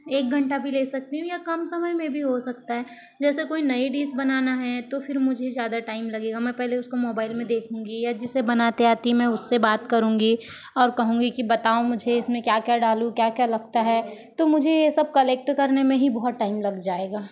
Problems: constant background noise, background conversations at intervals